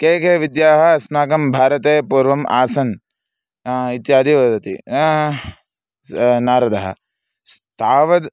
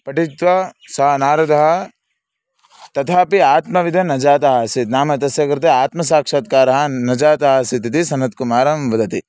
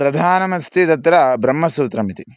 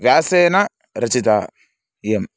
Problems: none marked